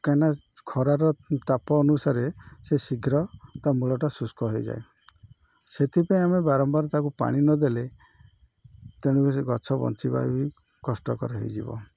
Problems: none marked